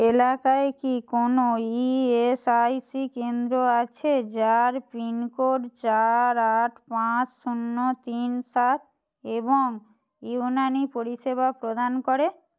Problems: none marked